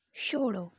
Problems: low volume